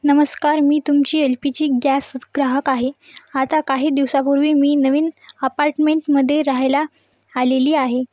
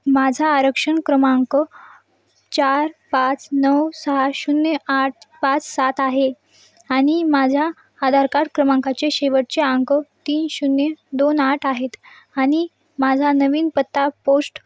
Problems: none marked